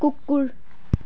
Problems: background sounds at intervals